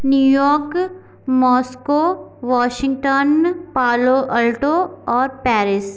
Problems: background sounds at intervals